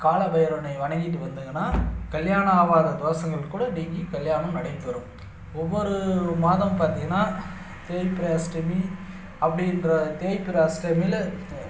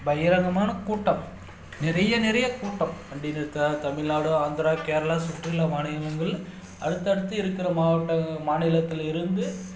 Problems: background sounds at intervals